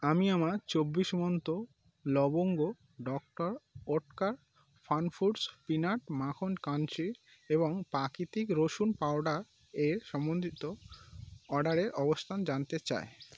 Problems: constant background noise